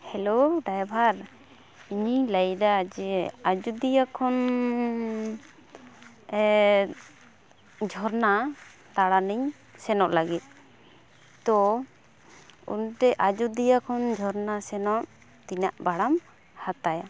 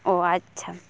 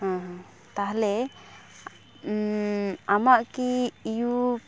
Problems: none marked